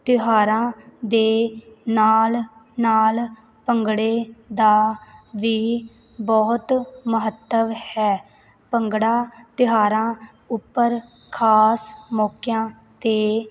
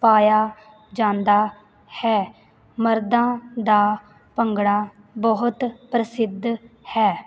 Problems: none marked